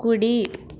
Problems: none marked